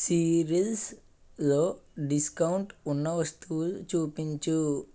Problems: constant background noise